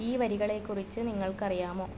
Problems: constant background noise, low volume